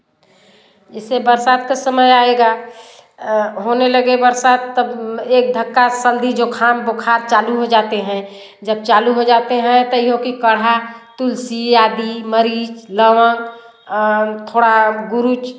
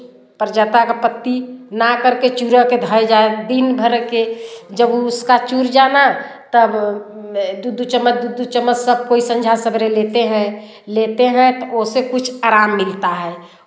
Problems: constant background noise, background conversations at intervals, echo